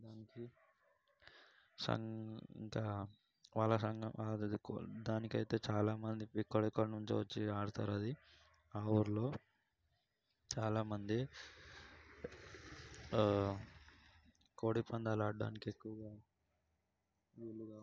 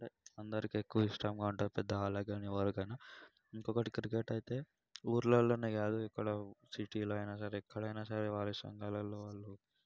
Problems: background sounds at intervals, low volume